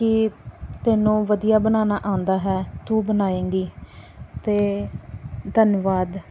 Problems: background sounds at intervals